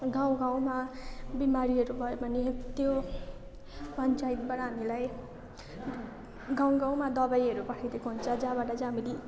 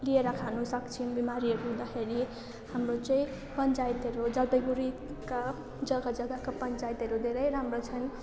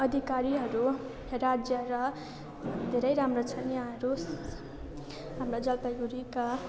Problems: constant background noise